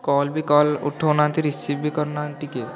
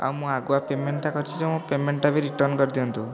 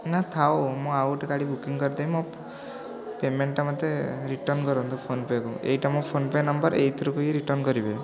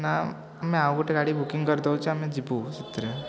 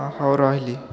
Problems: constant background noise, continuous background conversations